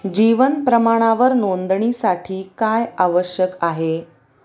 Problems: none marked